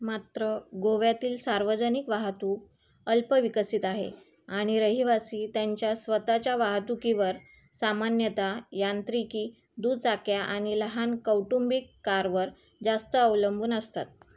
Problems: background sounds at intervals